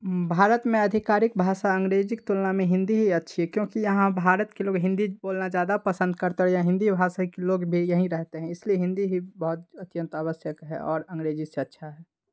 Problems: background sounds at intervals